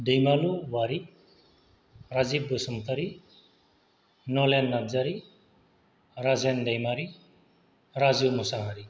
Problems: none marked